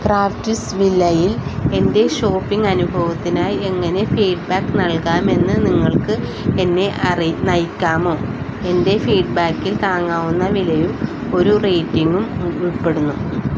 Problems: constant background noise